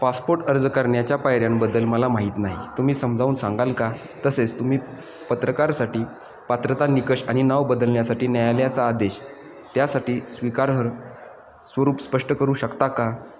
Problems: none marked